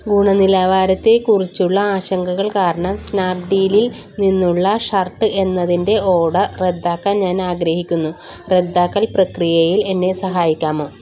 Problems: constant background noise